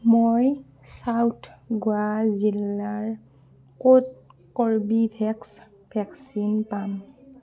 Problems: none marked